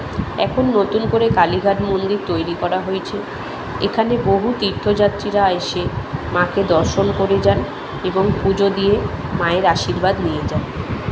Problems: constant background noise, background conversations at intervals